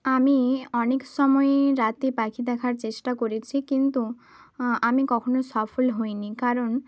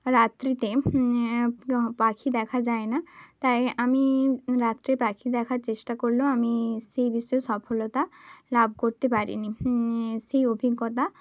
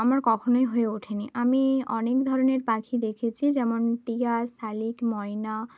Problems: constant background noise